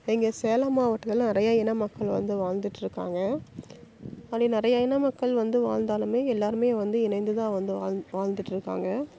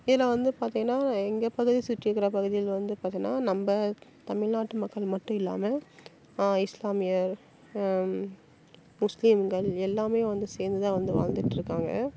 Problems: constant background noise